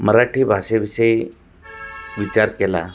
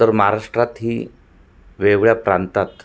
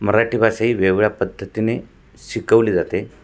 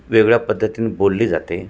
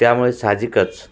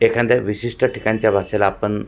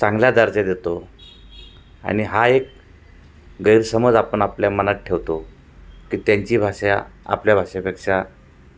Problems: constant background noise, background conversations at intervals, echo